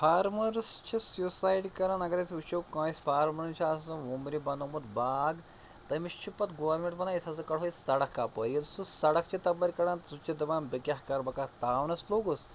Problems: constant background noise